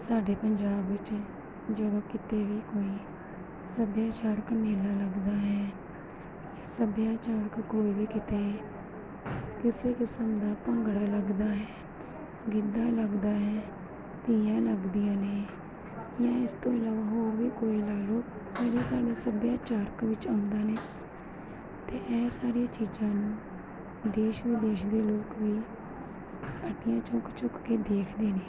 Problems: background sounds at intervals